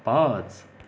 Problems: background sounds at intervals